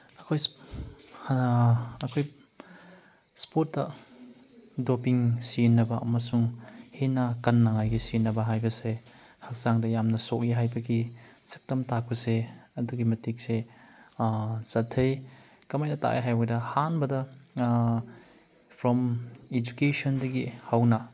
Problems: background sounds at intervals